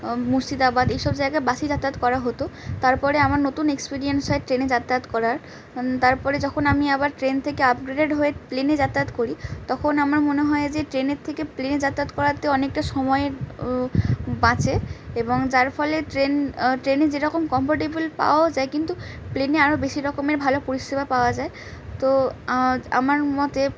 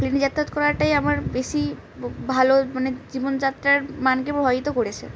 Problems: constant background noise